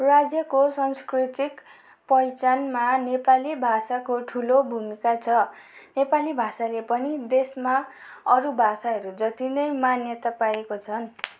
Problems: background sounds at intervals